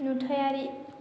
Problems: none marked